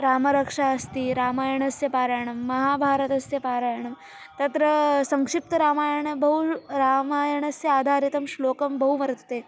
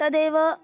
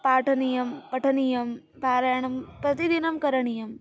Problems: constant background noise